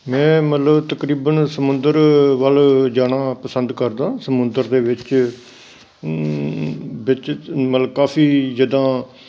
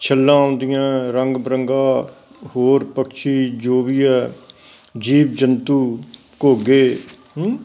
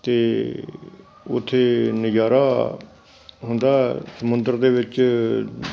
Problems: none marked